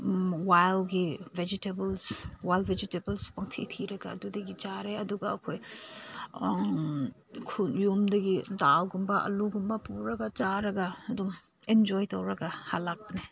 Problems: constant background noise